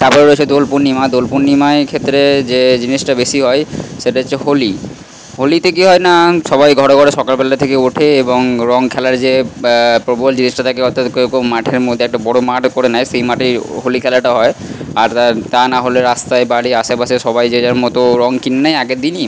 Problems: constant background noise